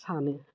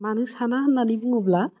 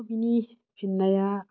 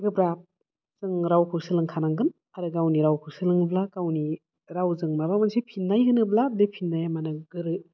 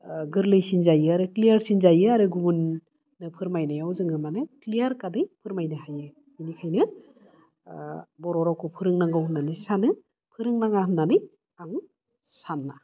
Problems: none marked